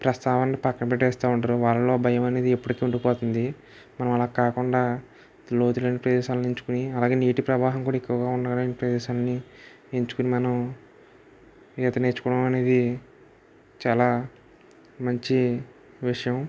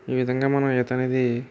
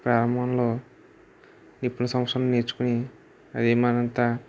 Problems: background sounds at intervals